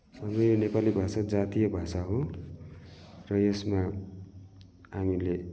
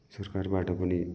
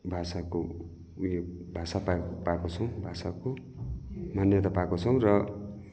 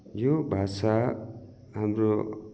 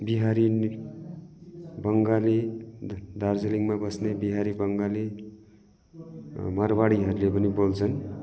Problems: none marked